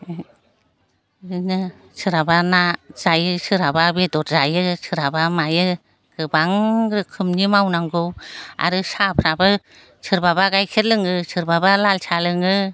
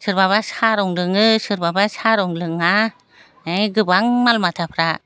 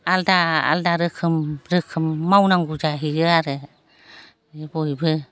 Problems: constant background noise